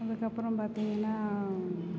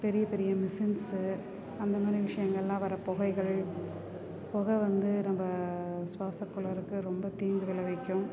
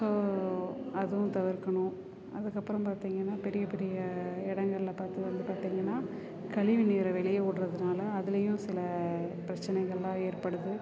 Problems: background sounds at intervals, background conversations at intervals